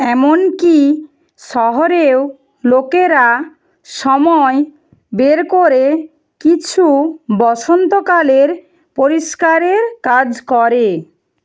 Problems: none marked